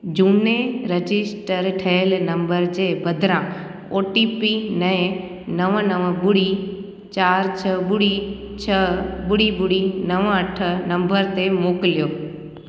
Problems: background conversations at intervals, echo